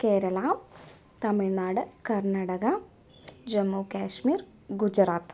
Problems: none marked